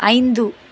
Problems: constant background noise